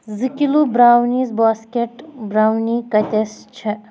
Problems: background sounds at intervals